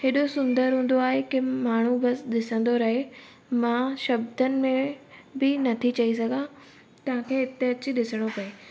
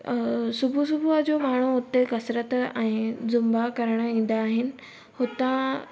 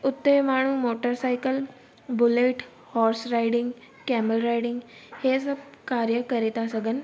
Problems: constant background noise